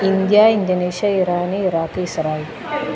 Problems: constant background noise